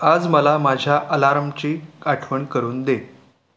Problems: constant background noise